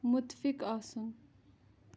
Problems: background sounds at intervals